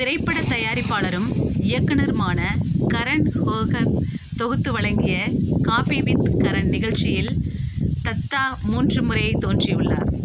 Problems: constant background noise